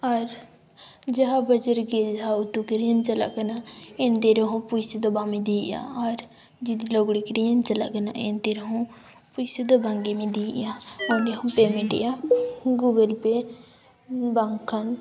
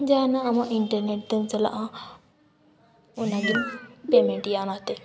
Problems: background sounds at intervals